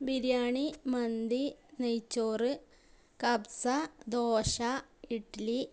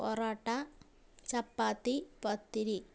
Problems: none marked